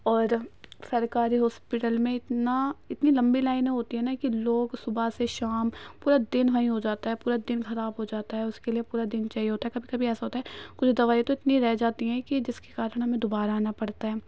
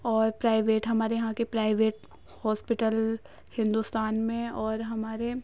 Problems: none marked